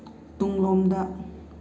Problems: constant background noise